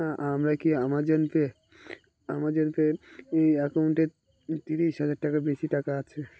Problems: constant background noise